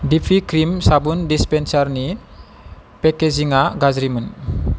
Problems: constant background noise